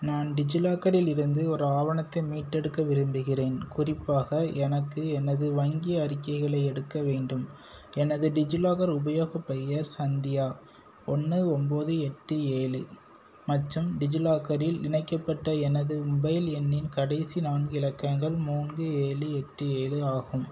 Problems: none marked